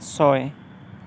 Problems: background sounds at intervals